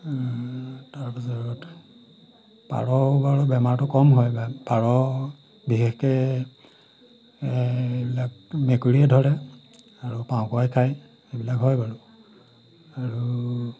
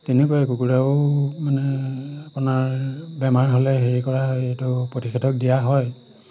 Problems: background sounds at intervals